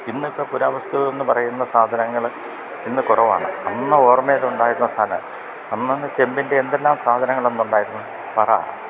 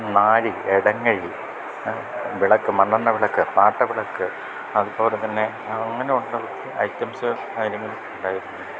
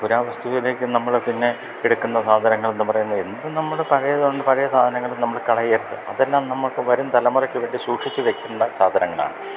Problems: constant background noise